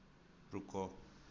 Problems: low volume